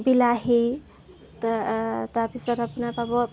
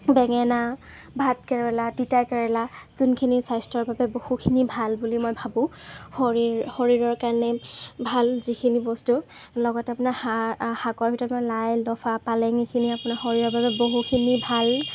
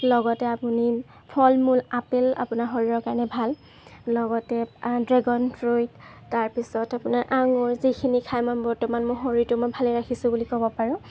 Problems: background sounds at intervals